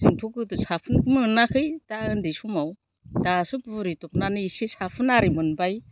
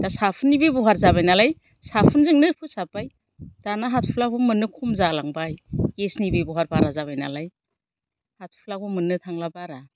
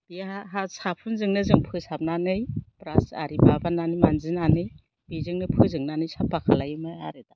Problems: low volume